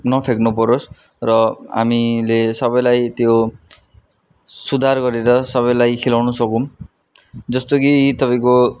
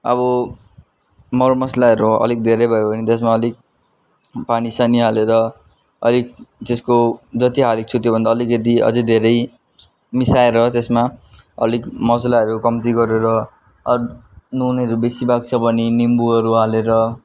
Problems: none marked